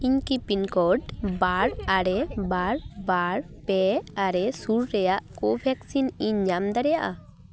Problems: background conversations at intervals